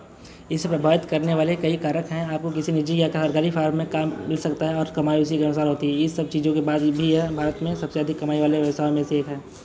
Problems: none marked